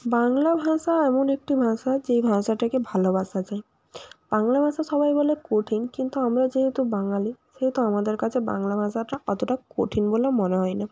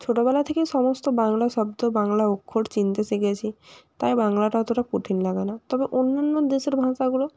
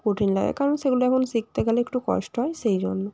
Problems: none marked